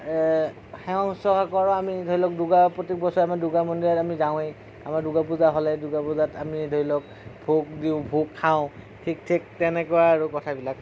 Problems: low volume